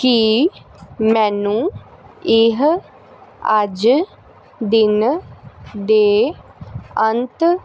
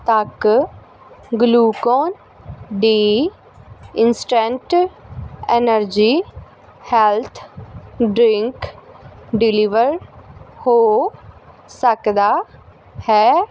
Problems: constant background noise